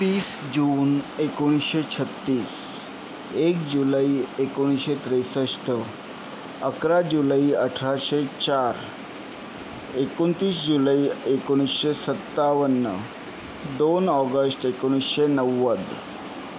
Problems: constant background noise